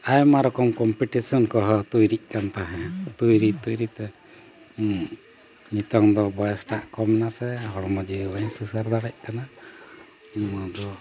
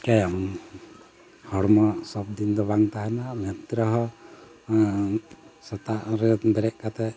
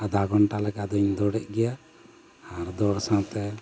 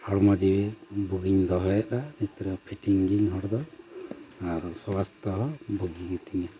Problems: constant background noise